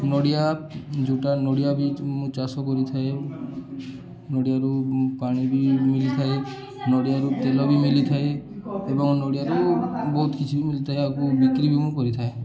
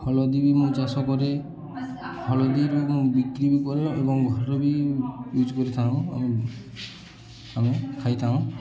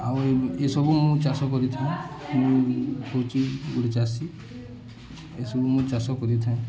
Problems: constant background noise, continuous background conversations